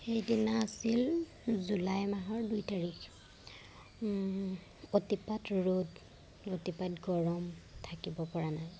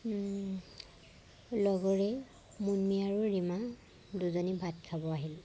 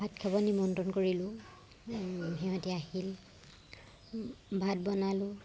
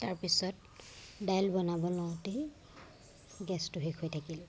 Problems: none marked